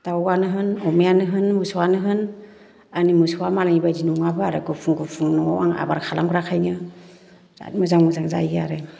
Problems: low volume